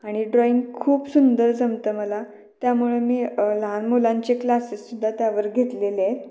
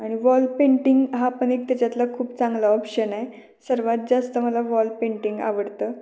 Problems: constant background noise, background conversations at intervals, echo